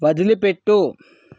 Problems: none marked